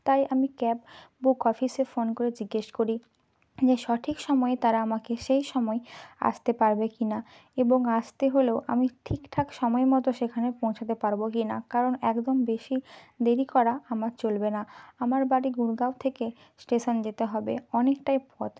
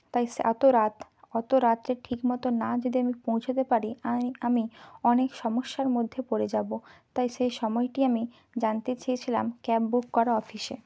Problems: background sounds at intervals, background conversations at intervals